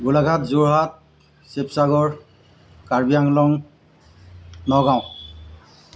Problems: constant background noise